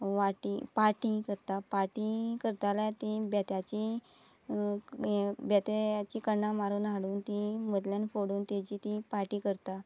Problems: constant background noise, background conversations at intervals